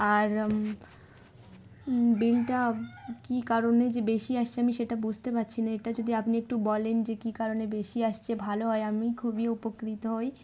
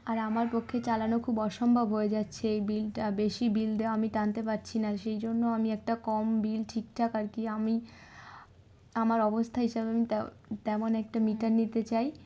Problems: background sounds at intervals